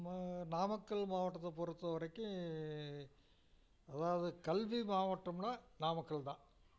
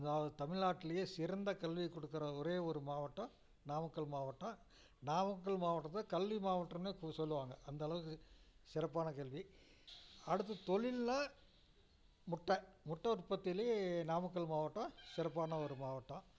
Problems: none marked